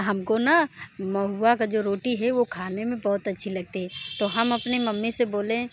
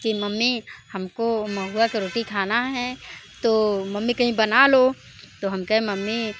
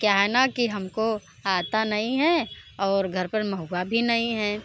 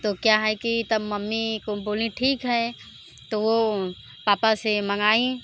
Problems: constant background noise